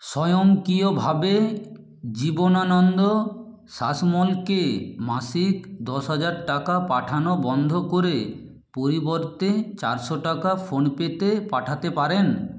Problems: none marked